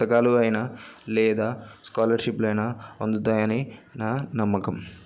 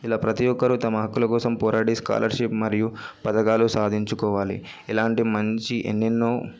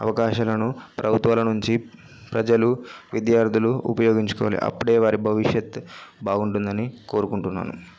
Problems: background conversations at intervals